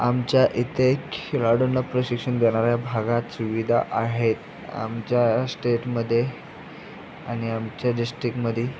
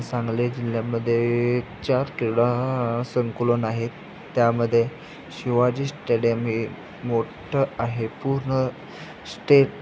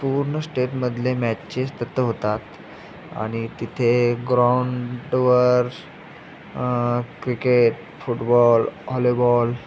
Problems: constant background noise, continuous background conversations